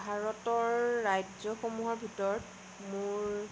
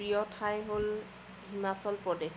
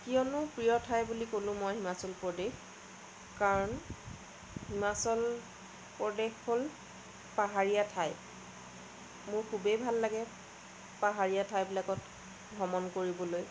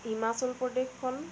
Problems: constant background noise